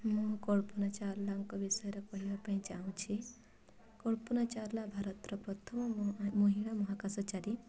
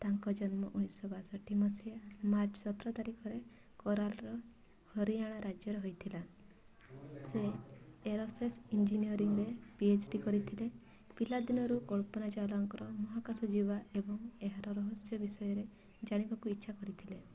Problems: constant background noise, continuous background conversations